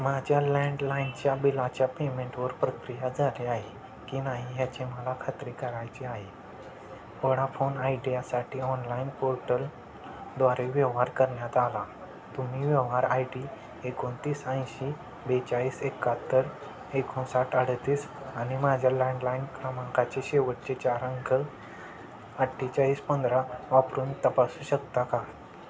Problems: constant background noise